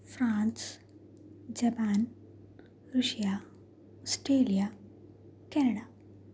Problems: background sounds at intervals